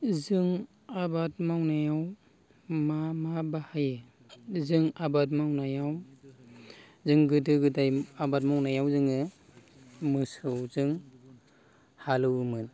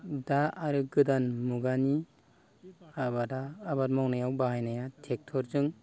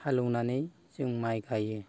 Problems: none marked